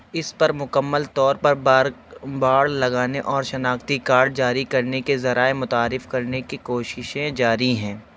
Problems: constant background noise